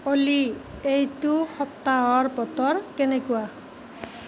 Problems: constant background noise